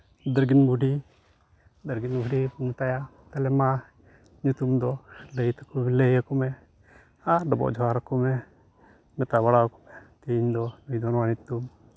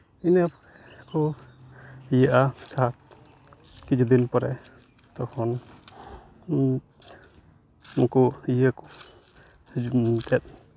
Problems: constant background noise